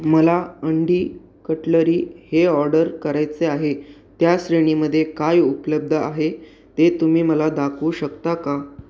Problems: none marked